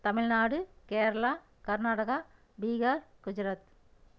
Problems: low volume